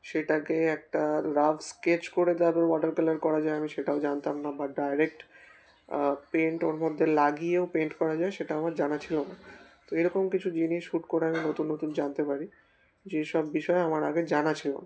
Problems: constant background noise